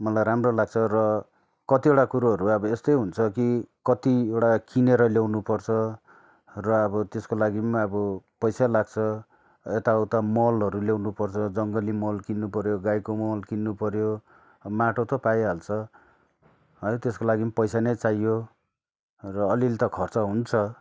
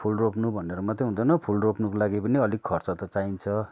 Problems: none marked